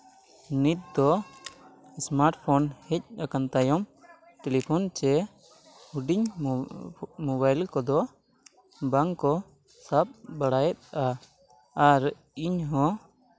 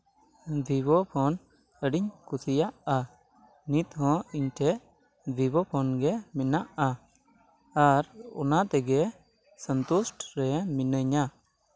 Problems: none marked